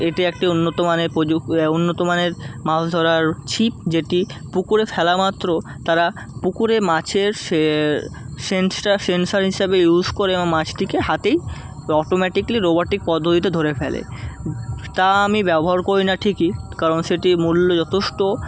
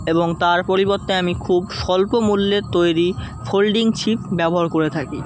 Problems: constant background noise